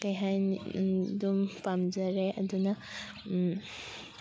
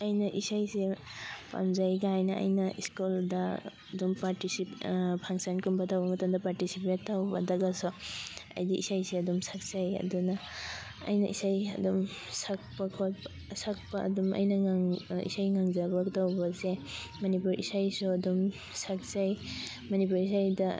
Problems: constant background noise, background conversations at intervals